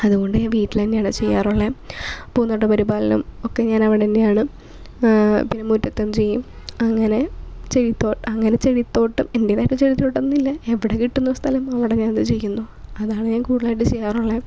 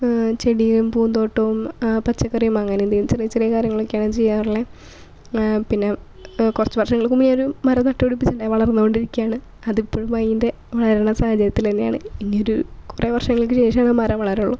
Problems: none marked